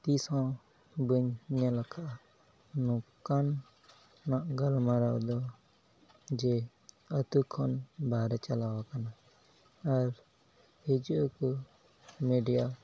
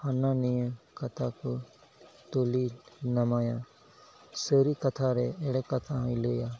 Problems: background sounds at intervals, low volume